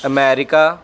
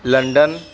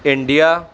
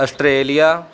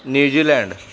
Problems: background conversations at intervals